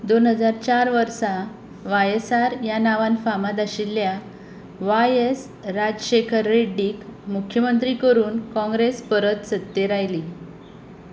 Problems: constant background noise